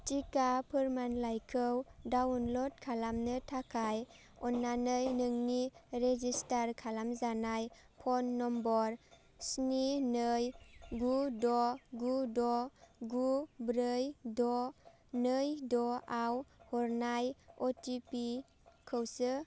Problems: none marked